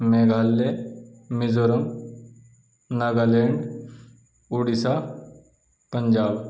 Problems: none marked